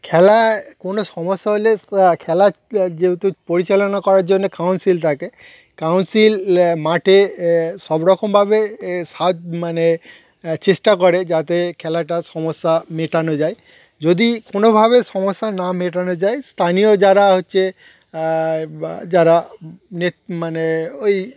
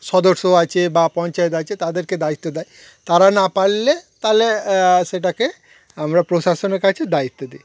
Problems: background sounds at intervals